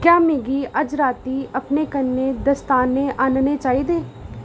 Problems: none marked